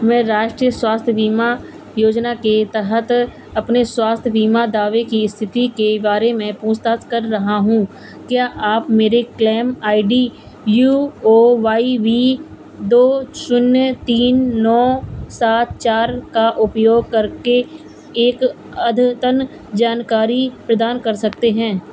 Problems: none marked